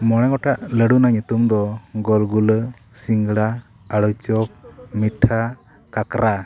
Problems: constant background noise, background conversations at intervals